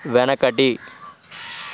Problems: constant background noise